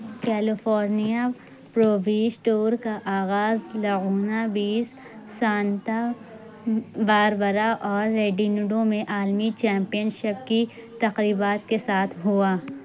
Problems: constant background noise, low volume